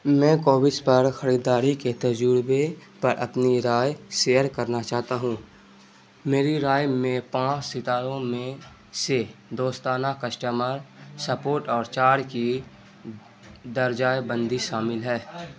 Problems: constant background noise